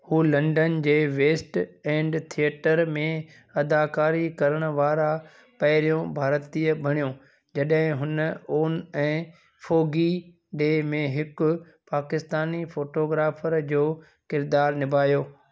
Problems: none marked